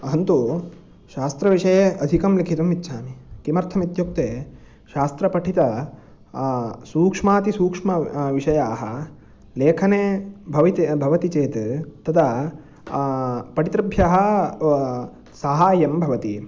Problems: none marked